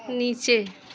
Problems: constant background noise